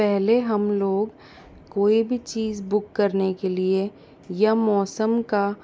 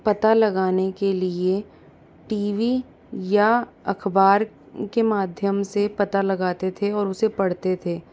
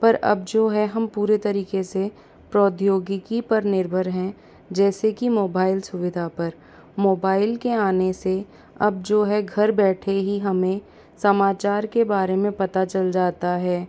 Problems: constant background noise